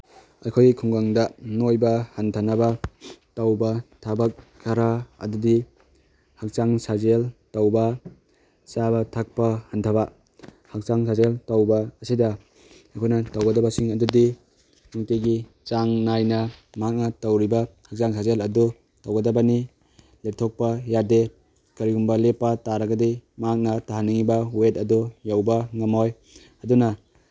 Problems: none marked